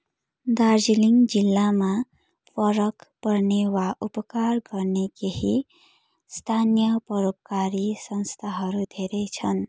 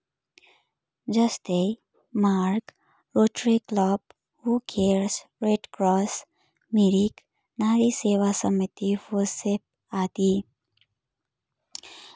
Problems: background sounds at intervals